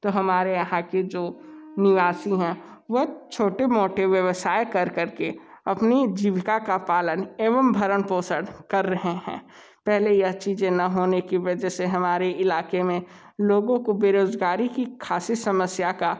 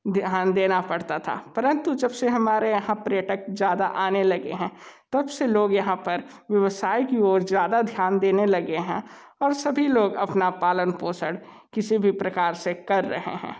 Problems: constant background noise